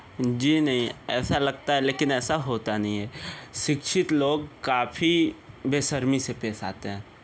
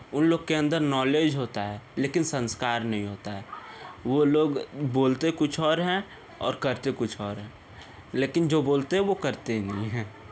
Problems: background conversations at intervals